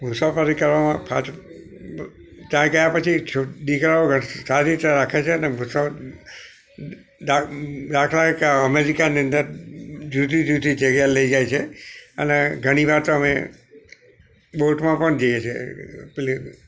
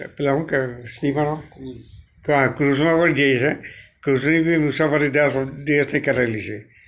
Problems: none marked